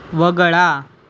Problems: constant background noise